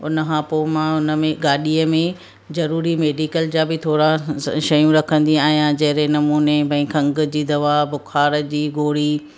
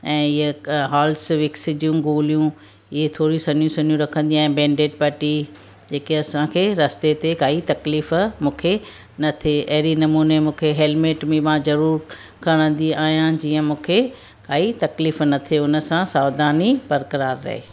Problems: none marked